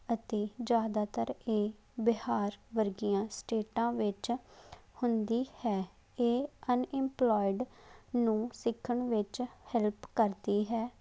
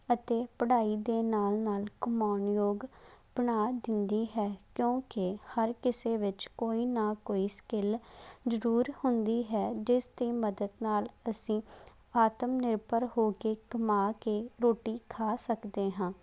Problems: background sounds at intervals